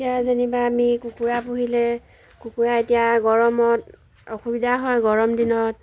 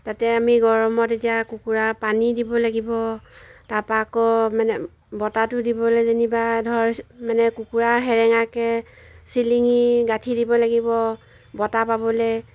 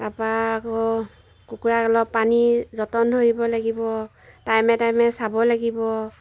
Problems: background sounds at intervals